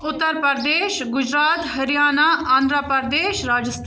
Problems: background conversations at intervals